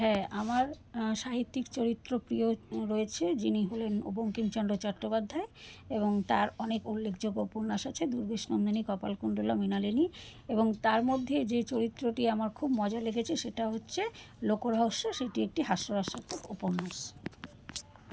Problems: background conversations at intervals